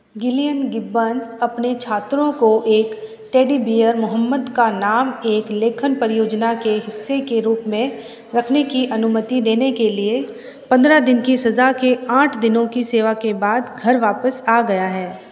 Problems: none marked